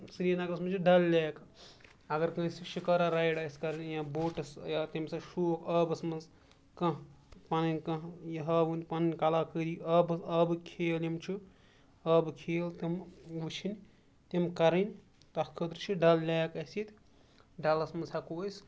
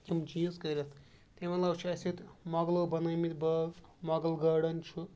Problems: background sounds at intervals